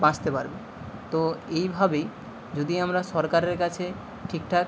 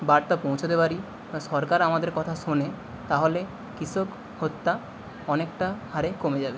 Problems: constant background noise